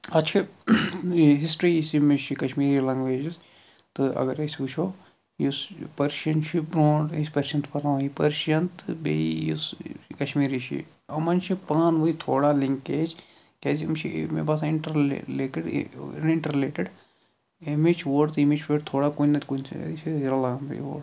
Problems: none marked